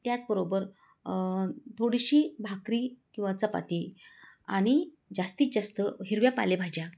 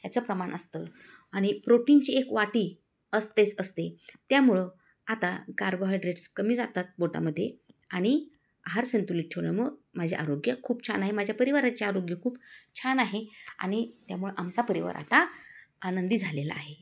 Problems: background sounds at intervals